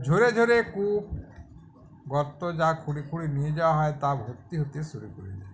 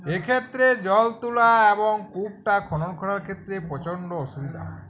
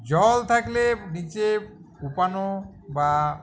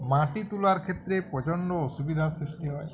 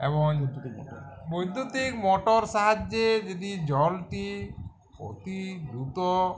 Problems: constant background noise